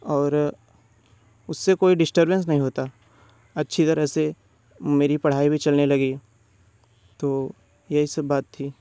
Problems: background sounds at intervals